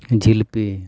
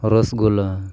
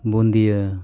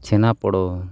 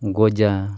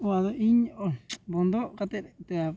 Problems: background sounds at intervals, background conversations at intervals